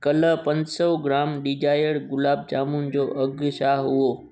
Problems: background sounds at intervals